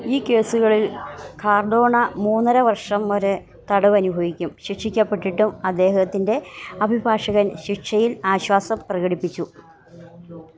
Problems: none marked